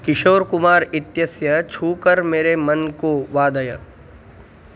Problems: none marked